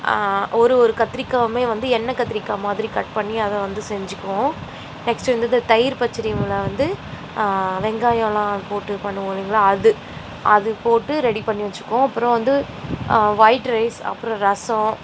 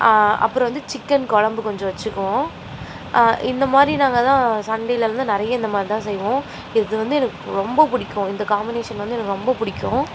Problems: none marked